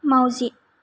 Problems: low volume